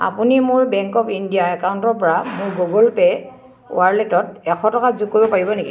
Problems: constant background noise, continuous background conversations